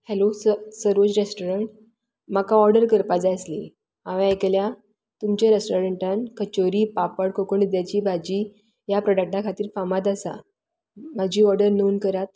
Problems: constant background noise